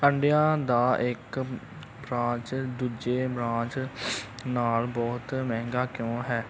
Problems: none marked